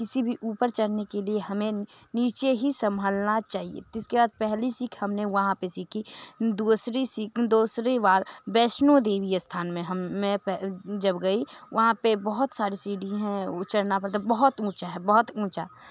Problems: constant background noise